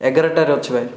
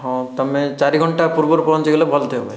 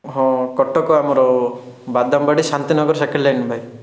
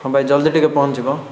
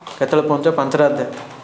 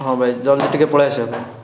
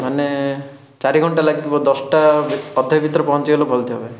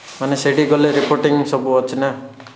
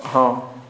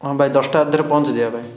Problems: background sounds at intervals